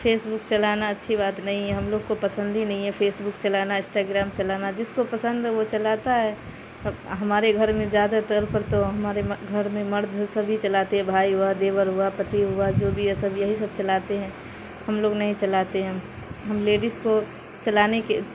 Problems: constant background noise